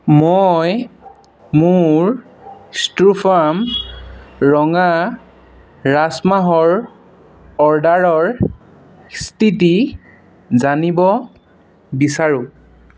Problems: constant background noise